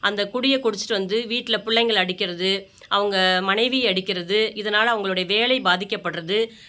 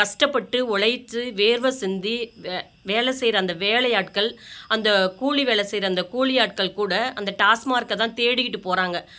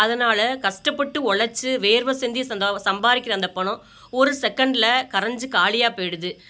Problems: none marked